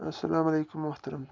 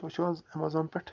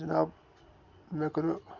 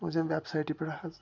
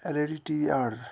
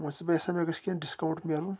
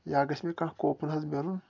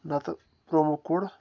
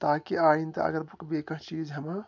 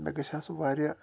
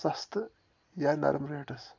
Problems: background sounds at intervals